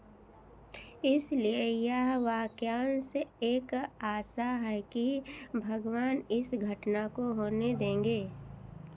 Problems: none marked